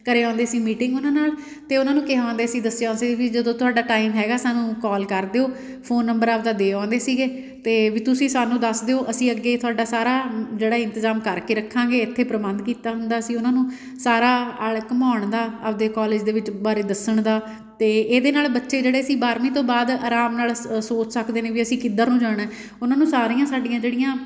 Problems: background sounds at intervals